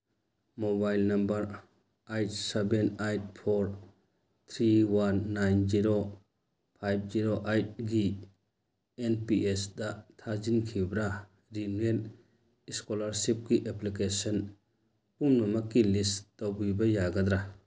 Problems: none marked